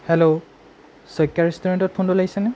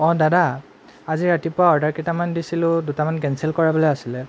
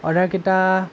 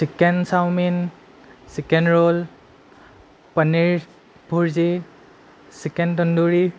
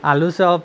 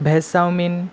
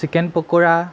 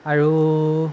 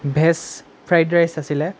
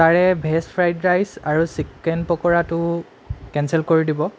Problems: none marked